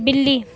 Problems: background sounds at intervals